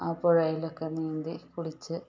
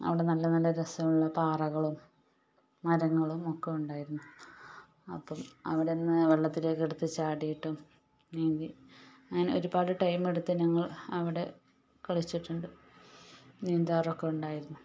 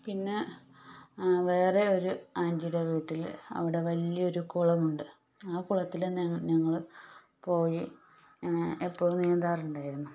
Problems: background sounds at intervals, low volume